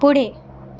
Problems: background sounds at intervals